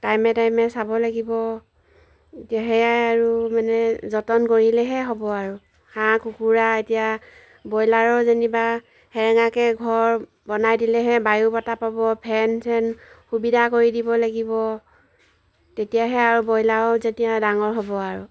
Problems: background sounds at intervals